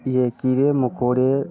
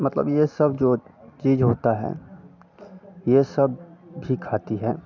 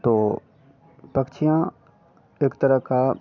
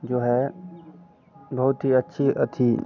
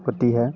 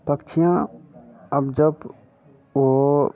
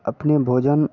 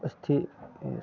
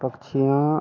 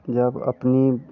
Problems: constant background noise